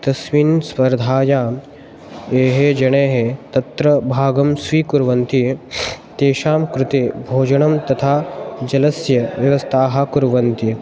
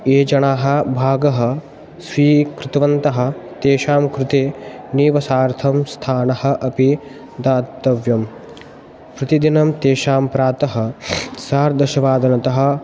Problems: background sounds at intervals